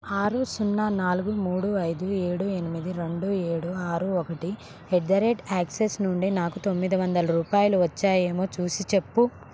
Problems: constant background noise